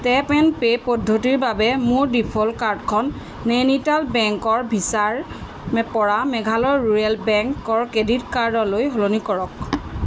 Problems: constant background noise